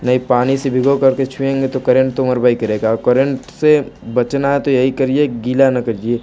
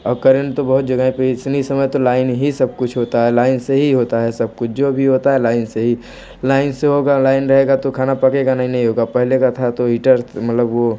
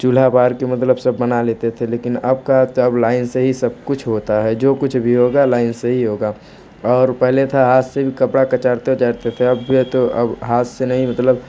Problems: constant background noise